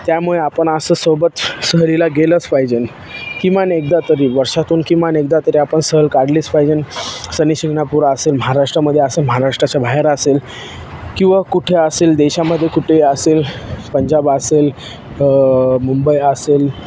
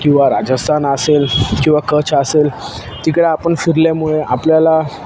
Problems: constant background noise